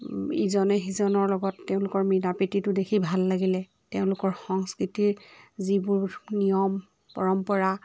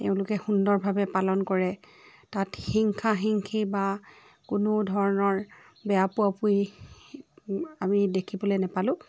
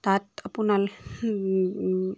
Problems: background sounds at intervals, continuous background conversations